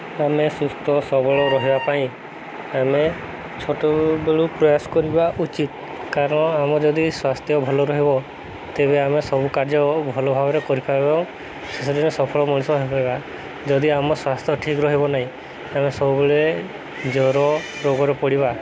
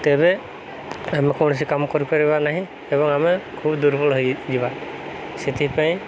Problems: constant background noise